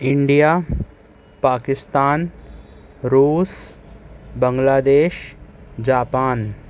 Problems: constant background noise